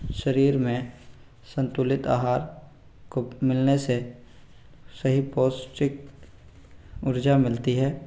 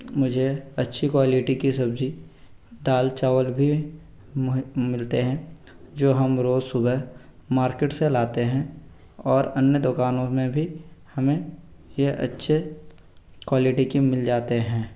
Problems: background sounds at intervals